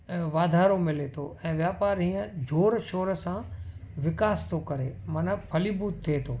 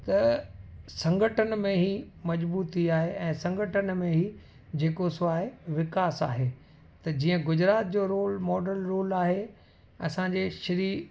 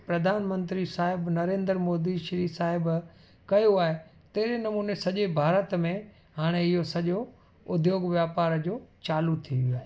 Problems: constant background noise